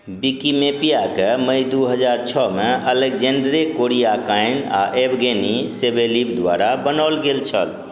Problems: none marked